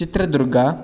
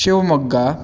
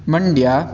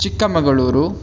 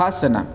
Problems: none marked